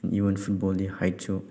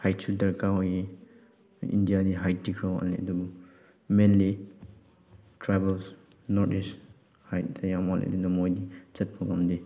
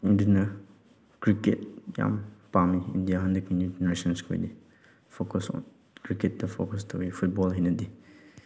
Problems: none marked